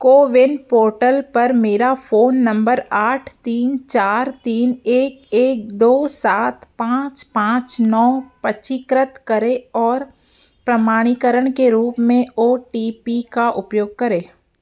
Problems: none marked